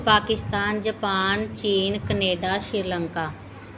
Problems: none marked